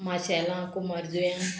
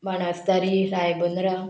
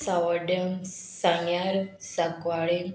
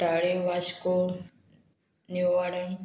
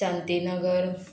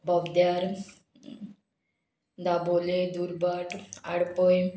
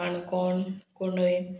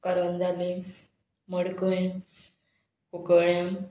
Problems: background sounds at intervals